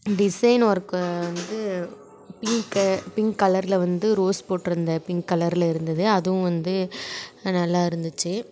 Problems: continuous background conversations